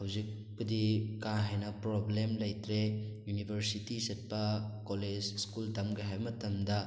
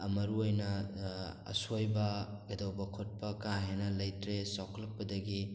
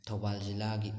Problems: background sounds at intervals